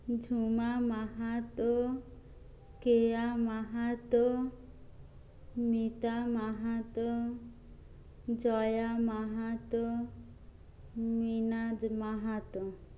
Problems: low volume